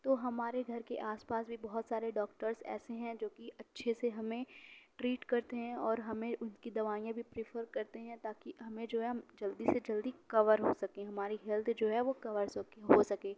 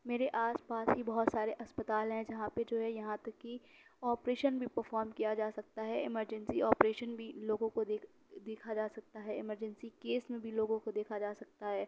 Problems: none marked